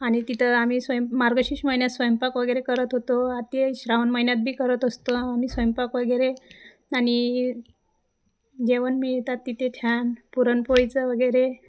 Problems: constant background noise, echo